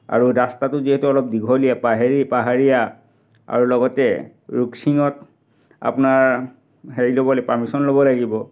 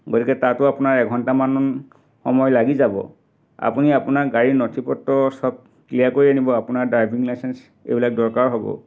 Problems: background sounds at intervals